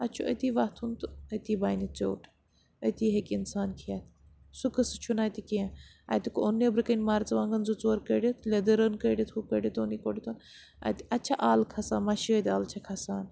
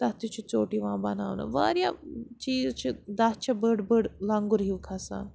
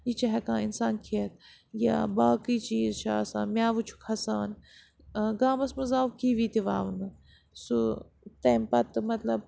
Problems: background sounds at intervals